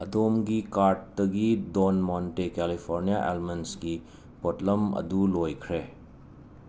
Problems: constant background noise